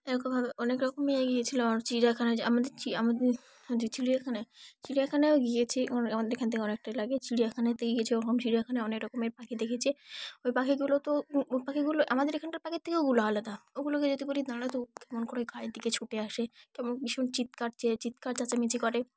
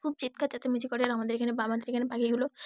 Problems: background sounds at intervals